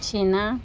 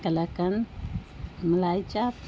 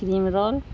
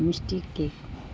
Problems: constant background noise